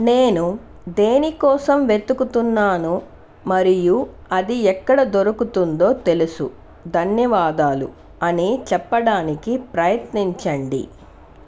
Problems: none marked